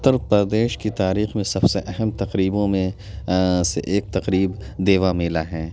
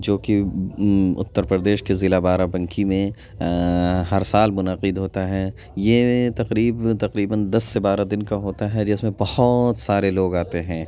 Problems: constant background noise, background conversations at intervals